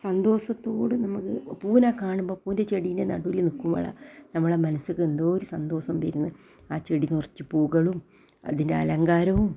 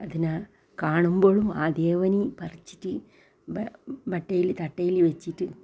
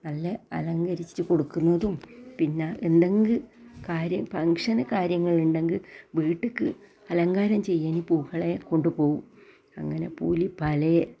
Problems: low volume